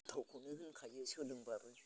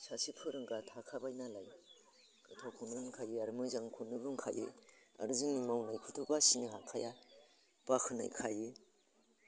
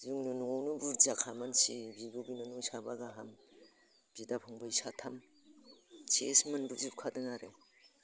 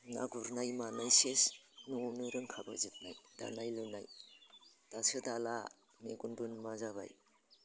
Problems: constant background noise